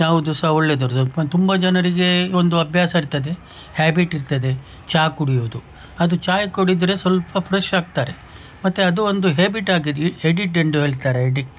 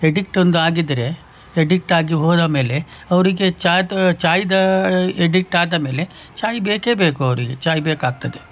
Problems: background sounds at intervals